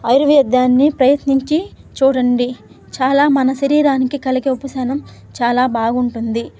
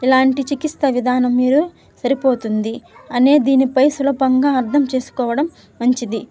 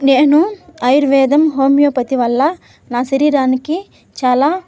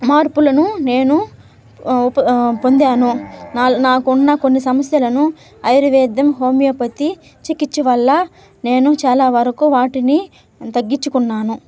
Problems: background sounds at intervals